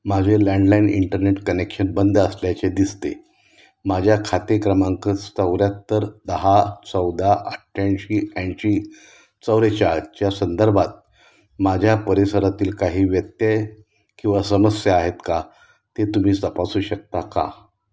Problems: constant background noise